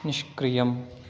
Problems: constant background noise